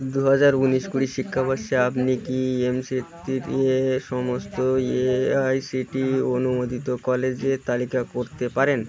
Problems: constant background noise